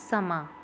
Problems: none marked